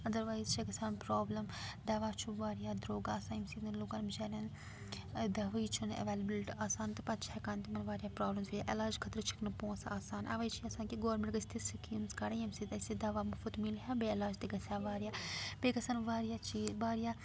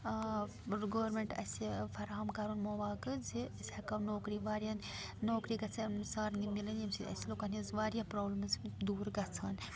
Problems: background sounds at intervals, continuous background conversations